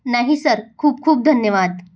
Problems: none marked